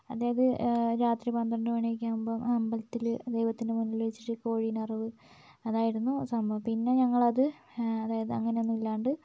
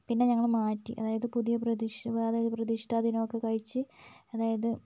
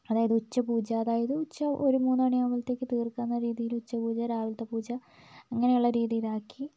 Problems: background sounds at intervals, low volume